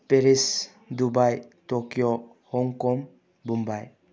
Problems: low volume